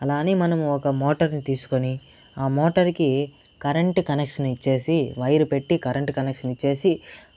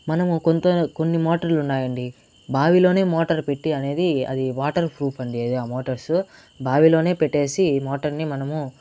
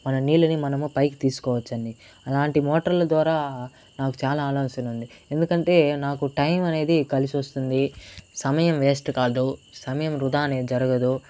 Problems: constant background noise